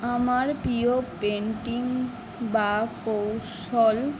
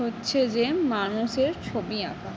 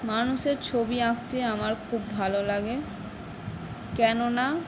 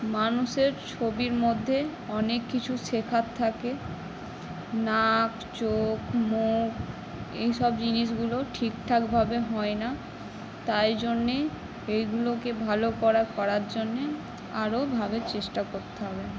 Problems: none marked